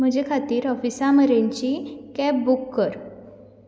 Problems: background sounds at intervals